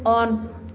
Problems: none marked